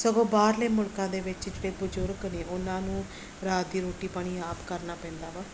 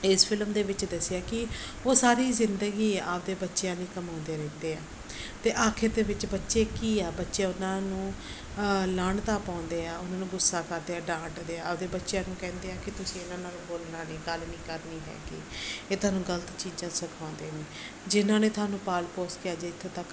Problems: none marked